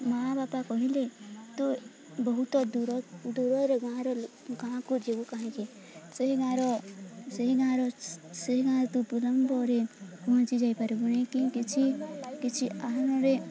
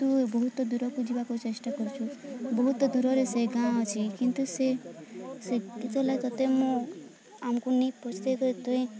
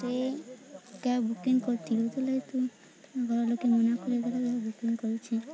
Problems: constant background noise, continuous background conversations